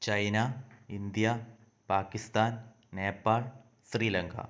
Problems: none marked